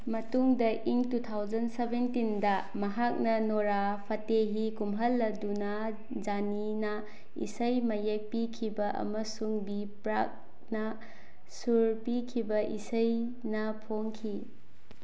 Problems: none marked